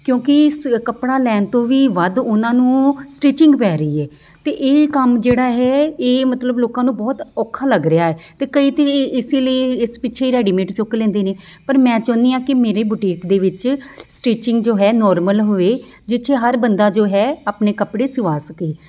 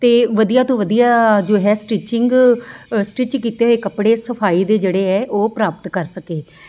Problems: constant background noise